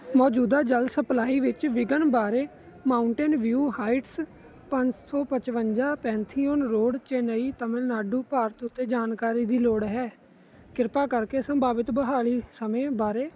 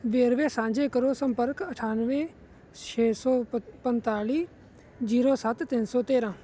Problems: constant background noise